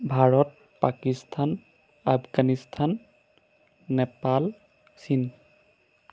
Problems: none marked